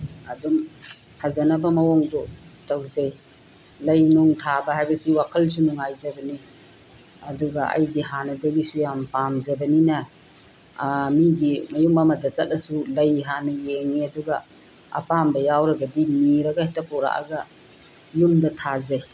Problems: constant background noise